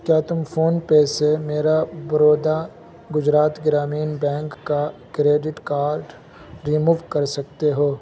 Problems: constant background noise, low volume